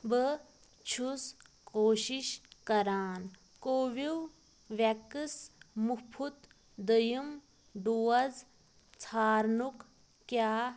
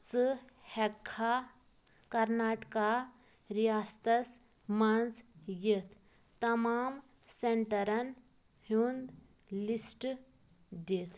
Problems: constant background noise